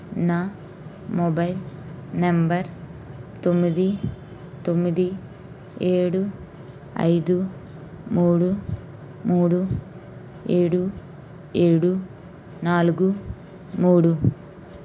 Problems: constant background noise